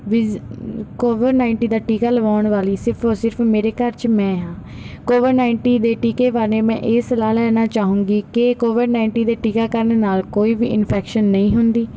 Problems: background sounds at intervals